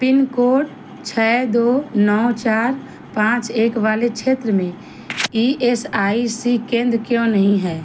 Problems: none marked